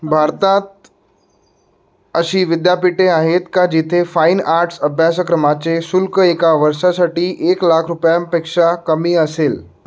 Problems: none marked